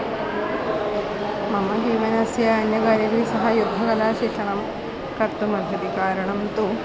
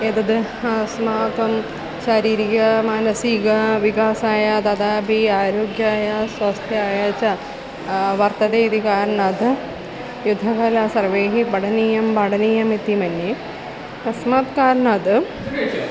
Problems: constant background noise